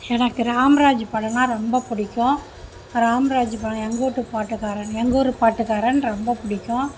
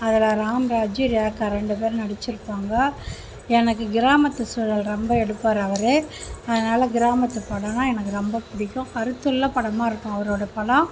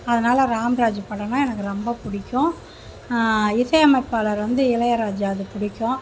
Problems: constant background noise